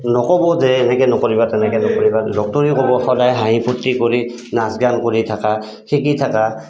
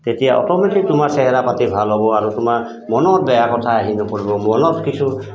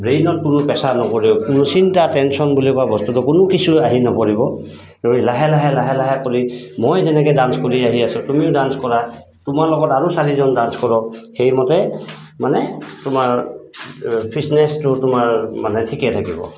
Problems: constant background noise